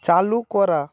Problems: none marked